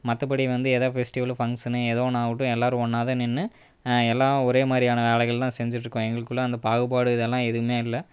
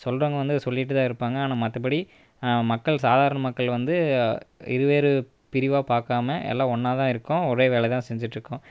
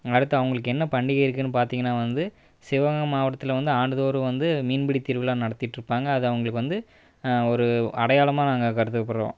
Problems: none marked